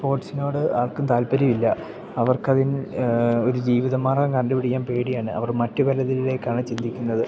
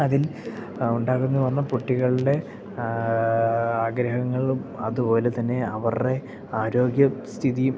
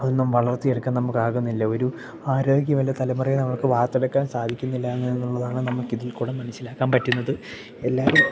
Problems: background sounds at intervals, background conversations at intervals